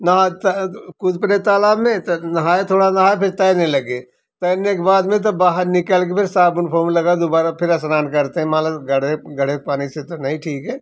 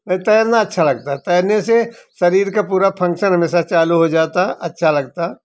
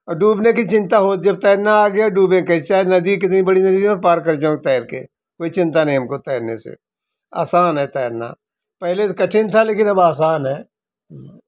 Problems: none marked